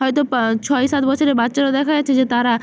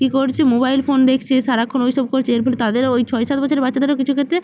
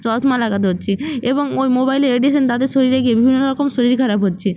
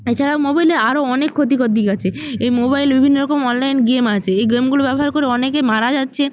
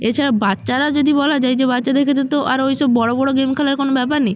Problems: none marked